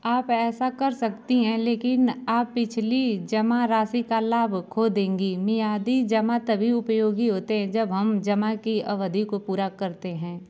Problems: background sounds at intervals